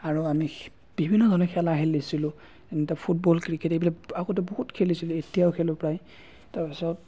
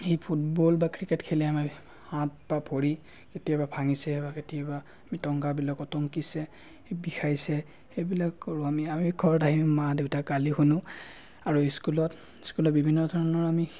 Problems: none marked